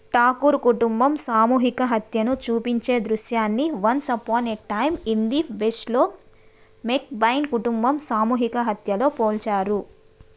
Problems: background sounds at intervals